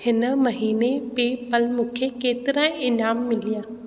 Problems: constant background noise, echo